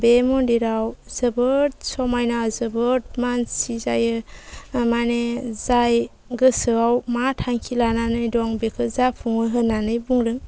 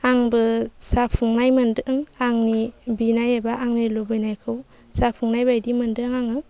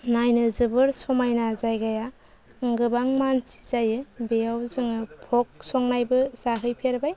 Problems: low volume